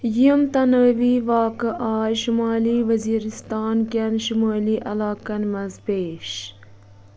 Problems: constant background noise